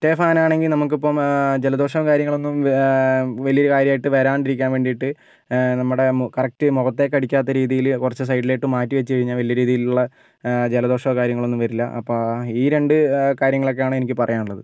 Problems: none marked